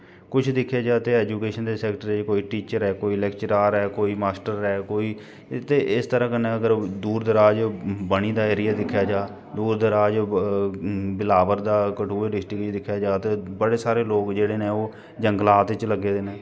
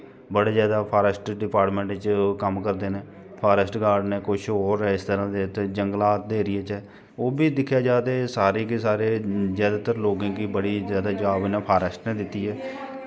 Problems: background sounds at intervals